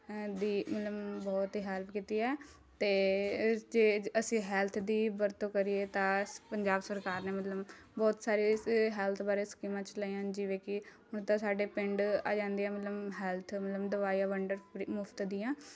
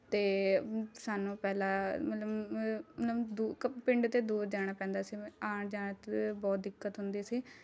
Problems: none marked